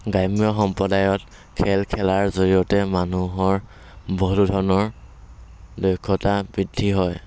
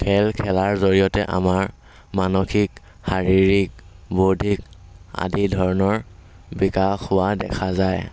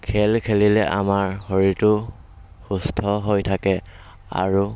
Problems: background sounds at intervals, background conversations at intervals